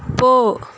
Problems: constant background noise